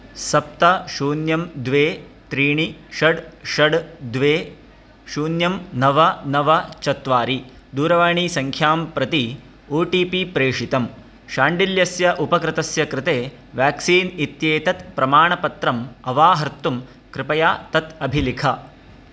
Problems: constant background noise